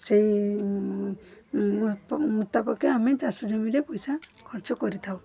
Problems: constant background noise, background conversations at intervals